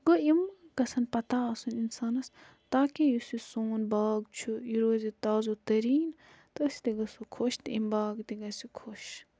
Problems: constant background noise